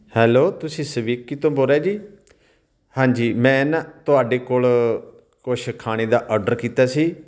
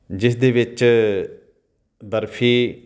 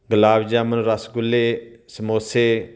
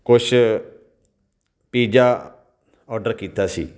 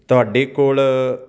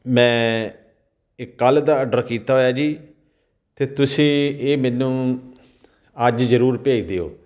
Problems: none marked